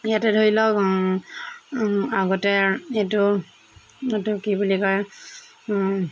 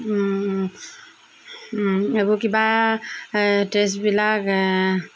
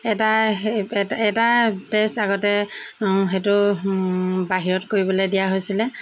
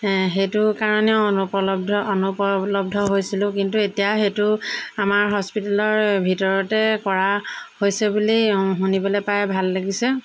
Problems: none marked